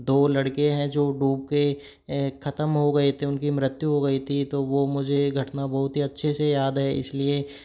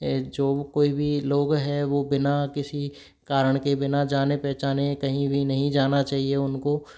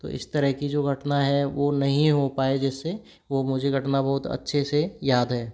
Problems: constant background noise